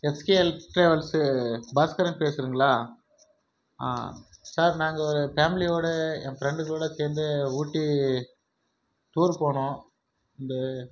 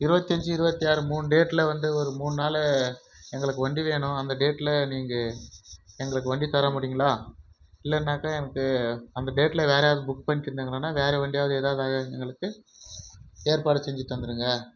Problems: background sounds at intervals